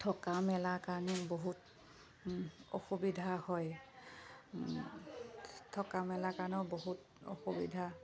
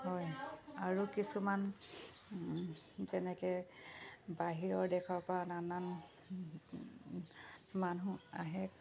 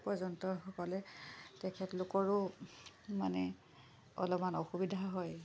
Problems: background sounds at intervals